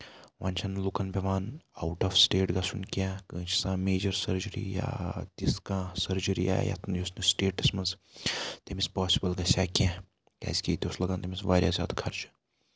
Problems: background sounds at intervals, low volume